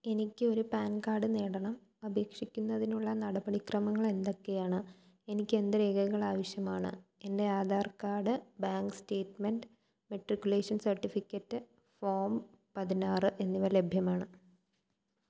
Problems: low volume